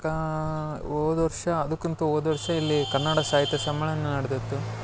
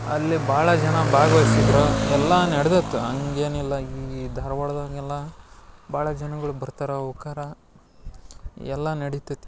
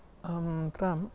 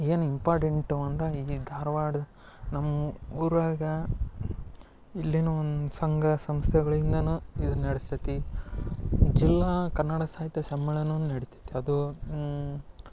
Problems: background sounds at intervals